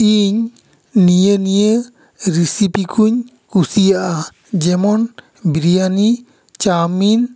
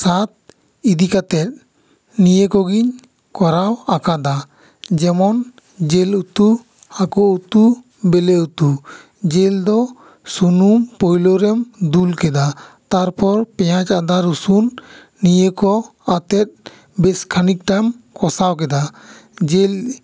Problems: echo